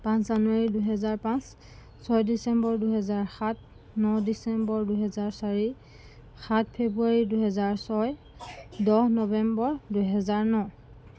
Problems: background sounds at intervals